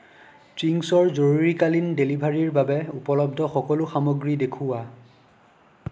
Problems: none marked